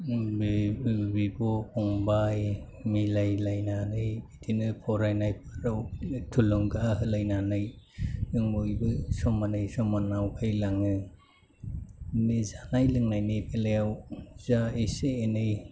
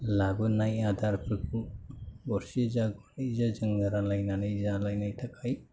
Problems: low volume